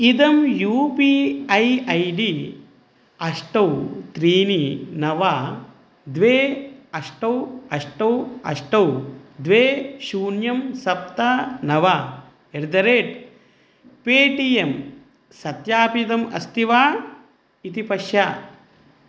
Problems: none marked